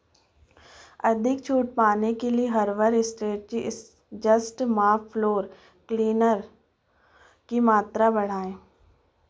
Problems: constant background noise, background conversations at intervals